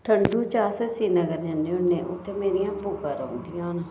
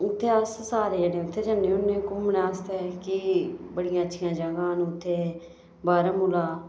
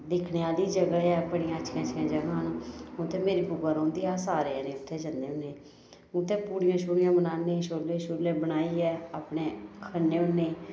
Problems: none marked